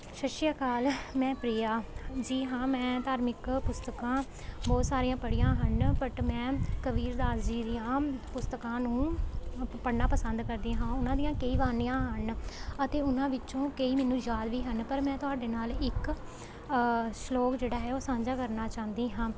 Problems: constant background noise